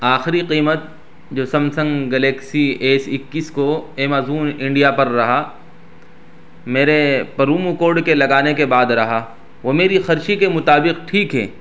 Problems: background sounds at intervals